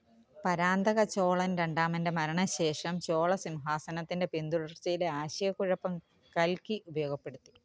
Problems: background conversations at intervals